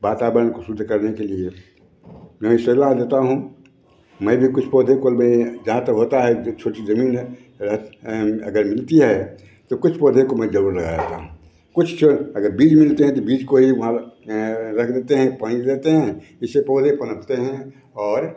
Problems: background sounds at intervals, background conversations at intervals